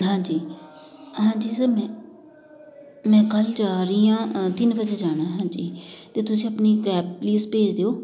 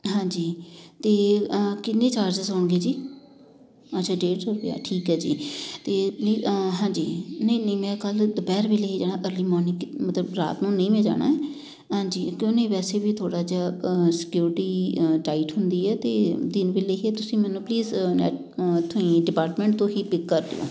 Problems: constant background noise, continuous background conversations